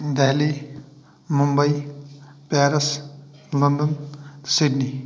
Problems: none marked